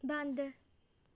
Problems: none marked